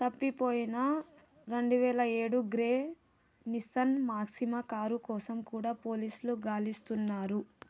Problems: low volume